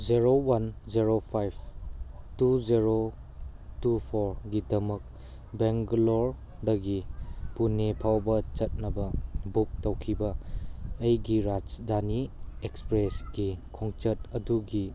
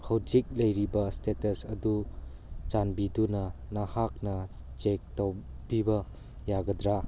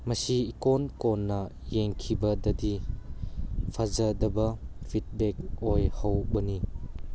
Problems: background sounds at intervals